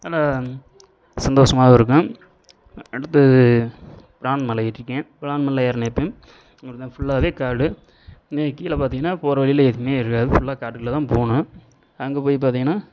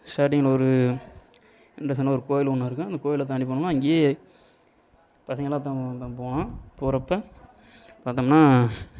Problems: continuous background conversations